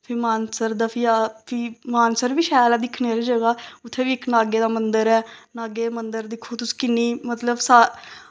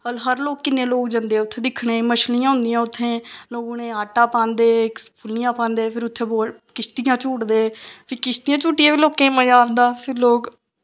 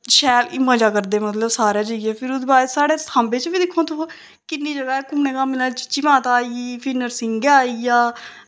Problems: none marked